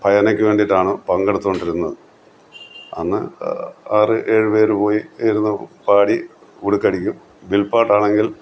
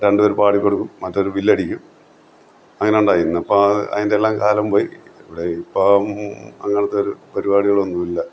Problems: constant background noise